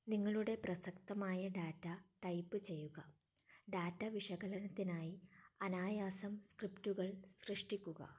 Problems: low volume